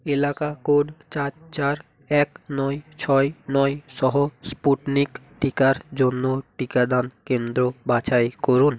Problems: none marked